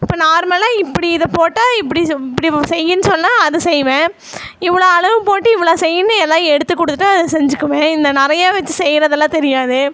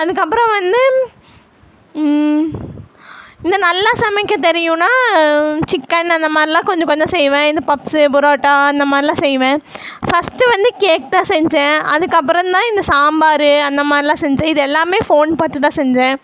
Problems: none marked